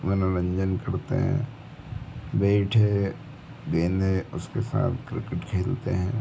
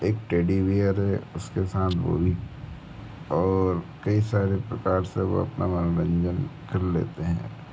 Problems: constant background noise